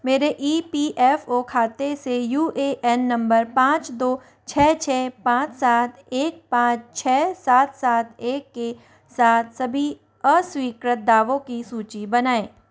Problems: constant background noise